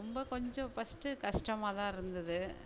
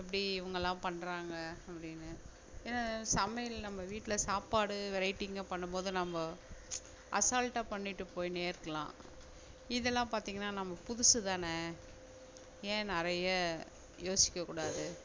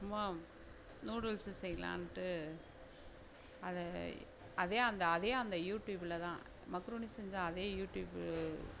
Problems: none marked